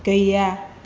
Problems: constant background noise